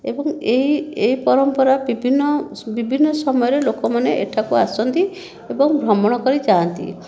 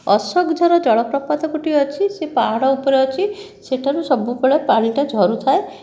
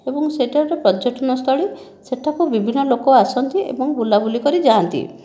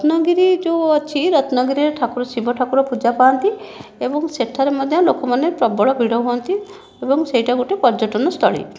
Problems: none marked